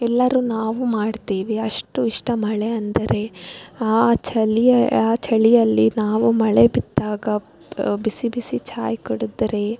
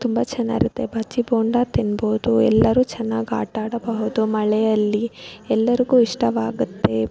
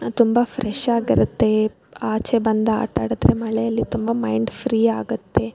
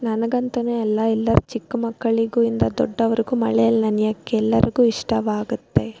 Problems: background sounds at intervals